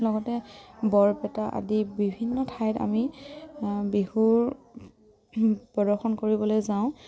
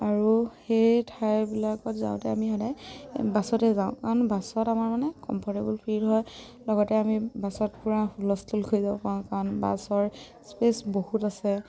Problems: background sounds at intervals